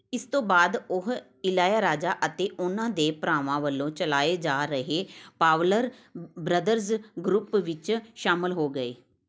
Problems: none marked